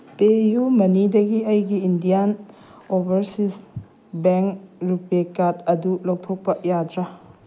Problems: background sounds at intervals